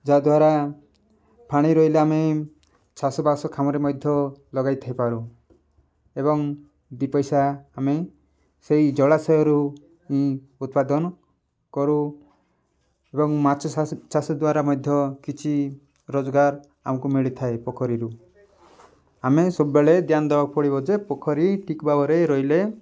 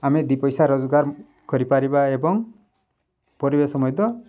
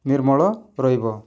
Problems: background sounds at intervals